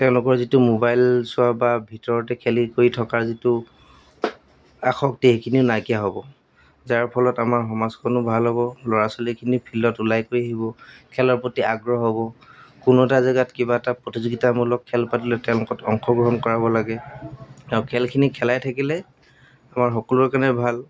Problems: background sounds at intervals